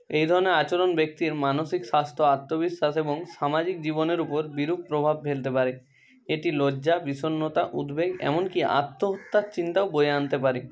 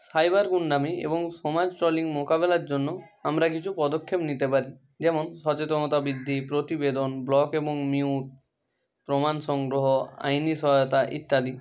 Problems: constant background noise, continuous background conversations